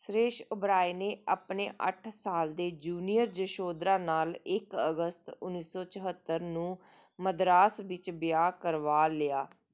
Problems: none marked